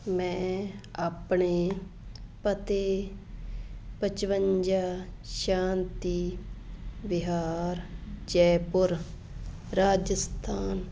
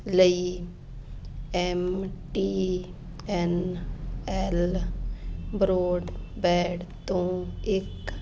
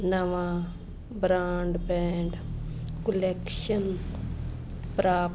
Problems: constant background noise